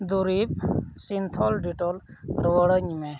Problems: background sounds at intervals